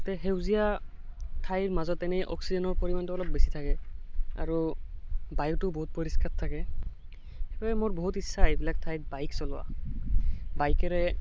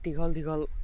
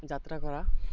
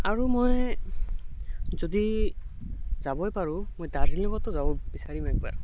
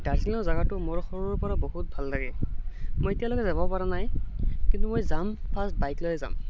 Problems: constant background noise